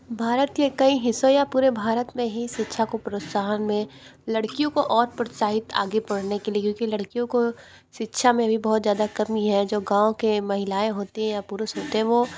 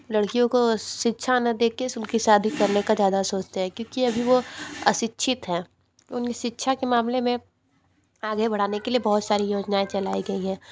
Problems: background sounds at intervals, background conversations at intervals